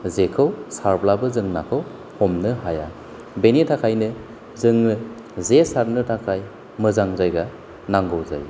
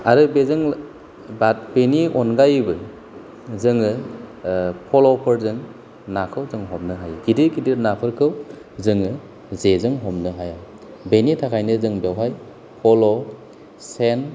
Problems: none marked